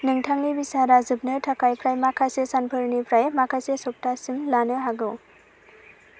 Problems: constant background noise